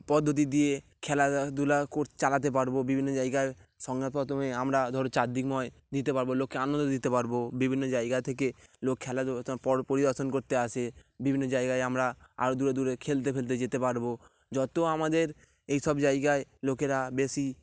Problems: none marked